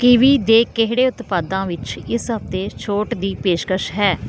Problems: constant background noise